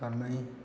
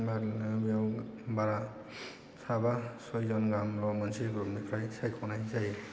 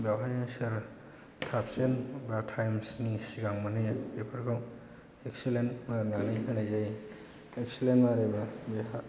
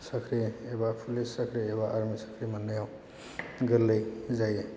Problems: low volume